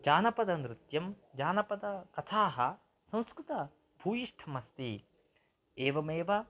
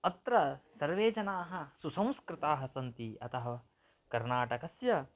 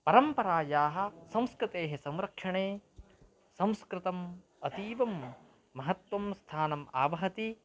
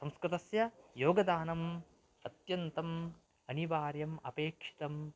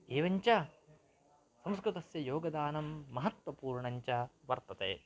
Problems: low volume